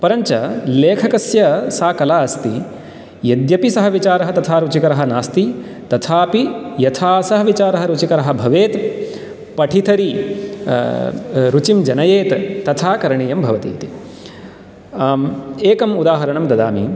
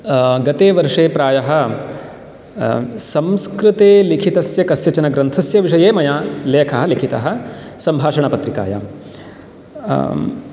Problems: background sounds at intervals